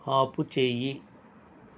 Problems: constant background noise